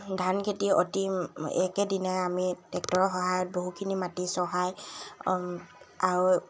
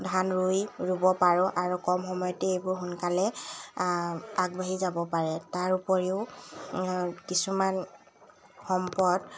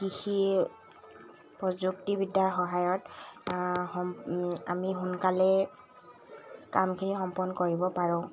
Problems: constant background noise